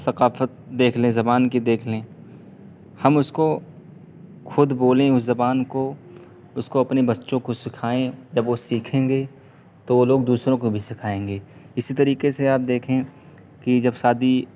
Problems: constant background noise